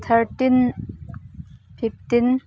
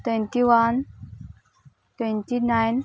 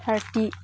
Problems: background sounds at intervals, background conversations at intervals